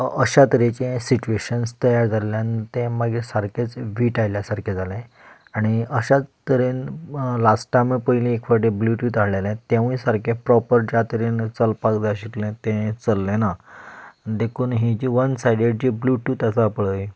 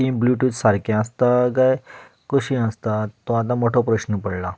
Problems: constant background noise